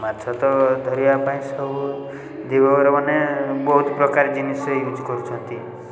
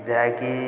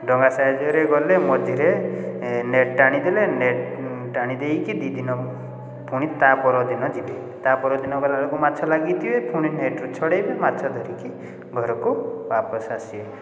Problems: constant background noise, continuous background conversations